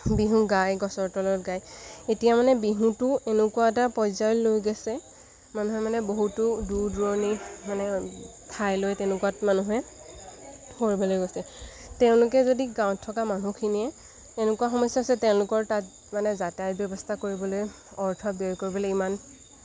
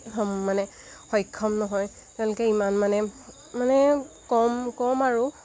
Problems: constant background noise